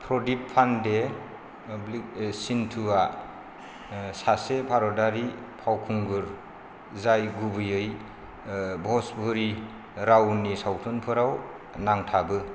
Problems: none marked